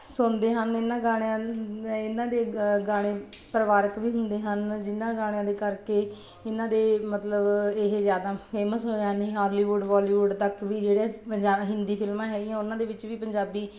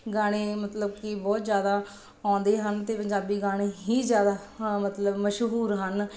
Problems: none marked